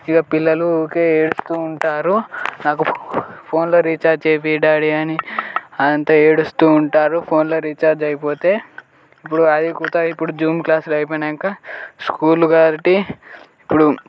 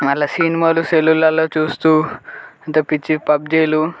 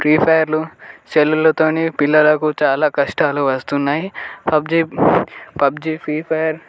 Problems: constant background noise, background conversations at intervals